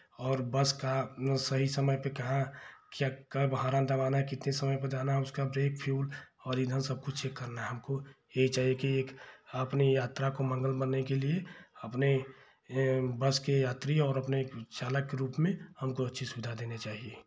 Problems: background sounds at intervals